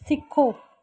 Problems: background sounds at intervals